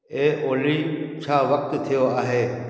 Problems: echo